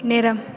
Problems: background conversations at intervals